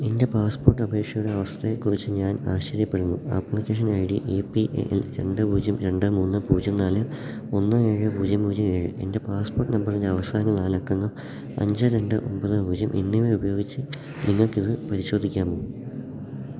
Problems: none marked